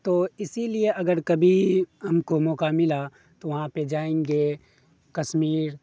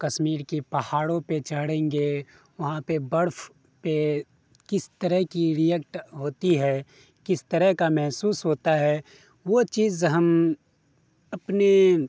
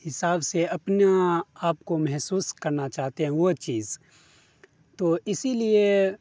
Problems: constant background noise